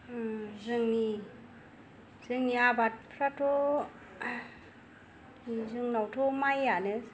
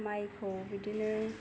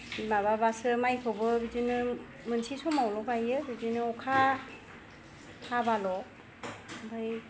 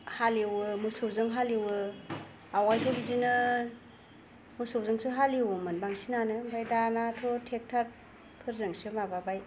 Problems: none marked